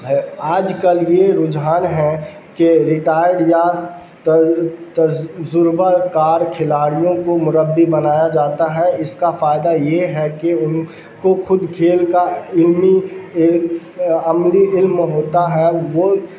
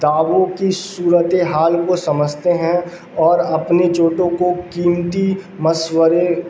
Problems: constant background noise